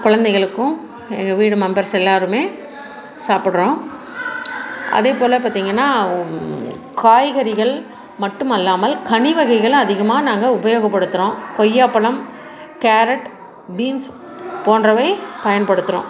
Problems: background conversations at intervals